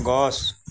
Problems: none marked